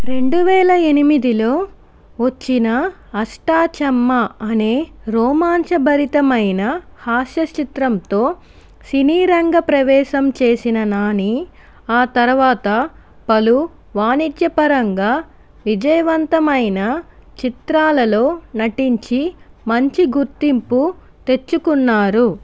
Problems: constant background noise